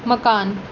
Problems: none marked